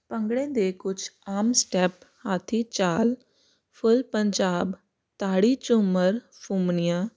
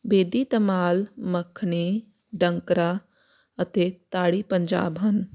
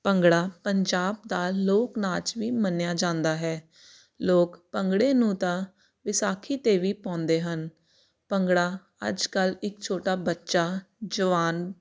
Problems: none marked